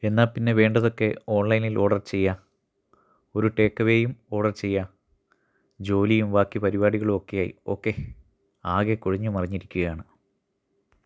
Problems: none marked